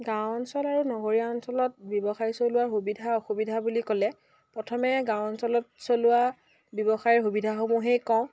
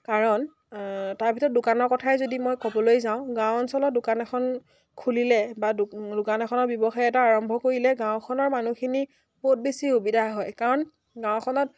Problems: none marked